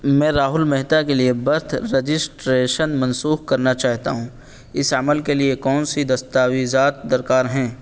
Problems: constant background noise